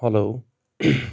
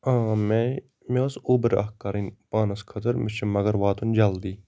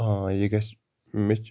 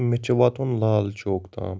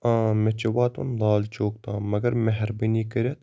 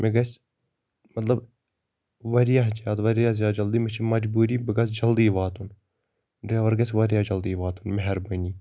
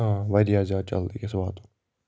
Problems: constant background noise